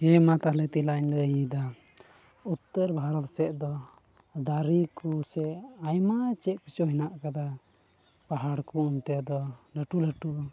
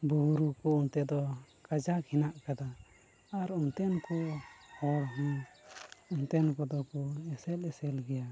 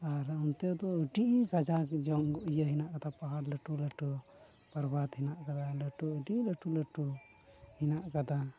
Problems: constant background noise, low volume